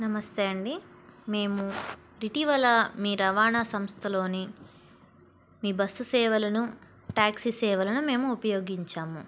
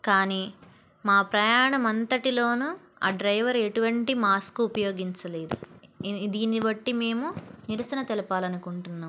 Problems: background sounds at intervals